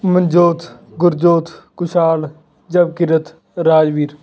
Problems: none marked